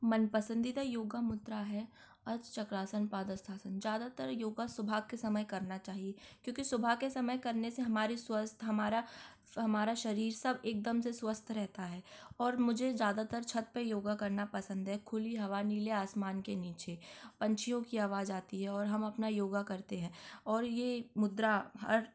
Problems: background sounds at intervals